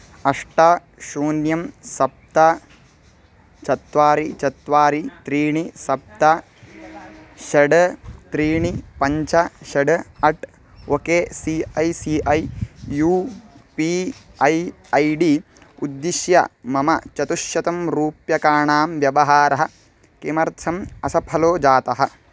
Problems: constant background noise, background conversations at intervals